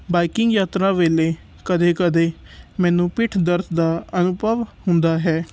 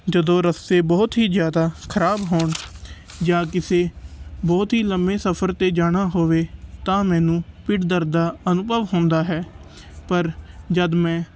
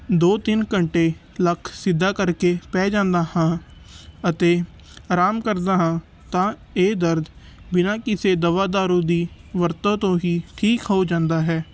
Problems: background sounds at intervals